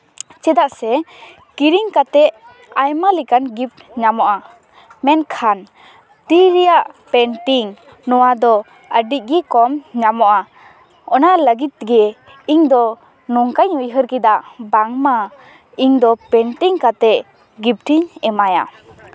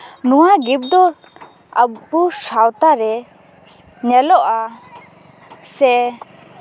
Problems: background sounds at intervals, continuous background conversations